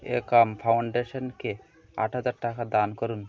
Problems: continuous background conversations